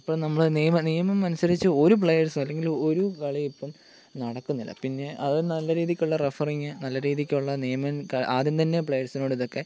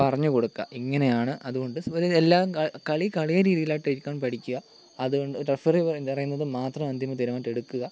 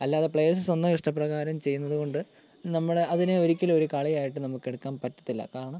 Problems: none marked